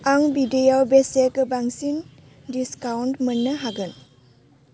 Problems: constant background noise